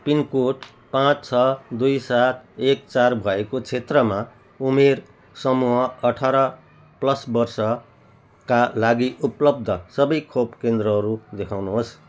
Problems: background sounds at intervals